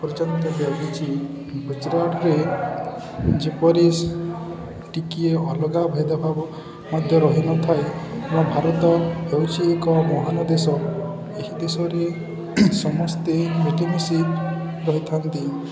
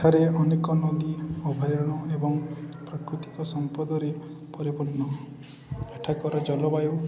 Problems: constant background noise, continuous background conversations